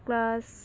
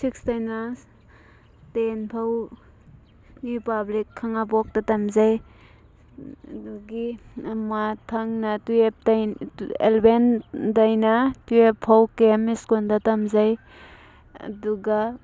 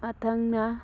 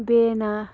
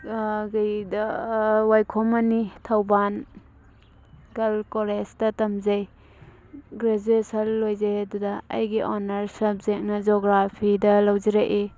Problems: background sounds at intervals